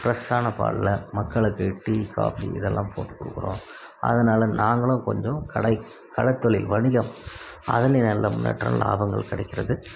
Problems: background sounds at intervals